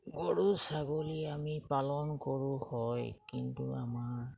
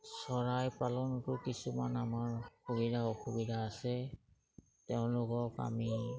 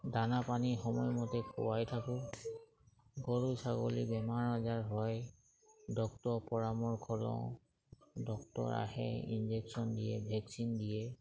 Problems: background sounds at intervals